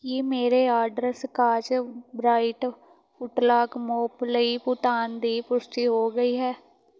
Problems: none marked